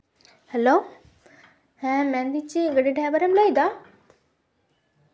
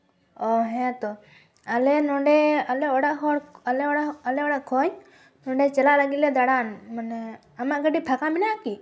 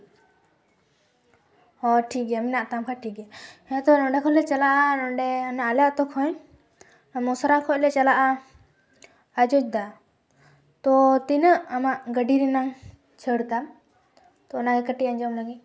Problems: constant background noise